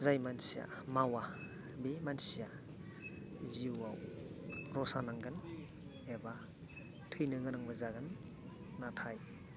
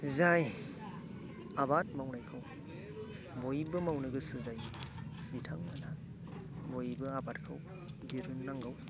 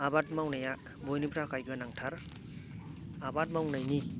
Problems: background sounds at intervals, continuous background conversations